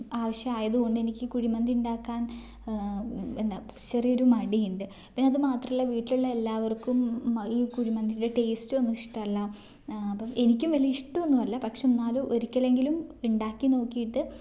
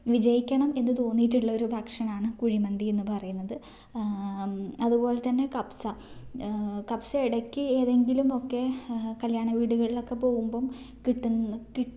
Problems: none marked